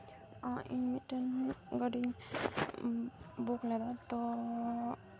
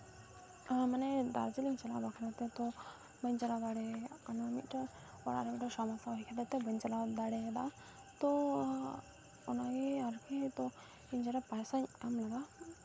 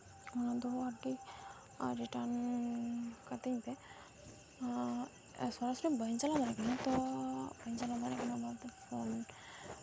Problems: background sounds at intervals